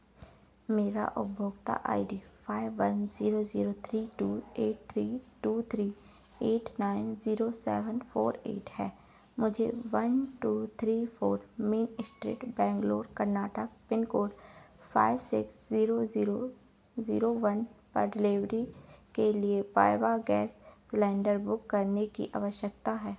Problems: constant background noise